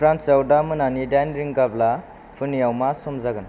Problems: constant background noise